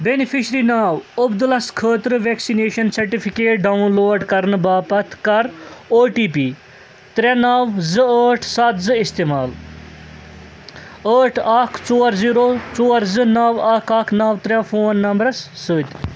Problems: constant background noise